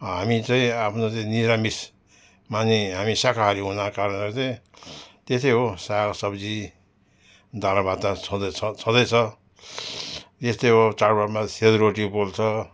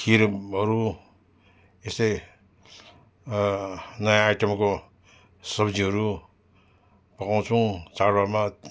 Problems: none marked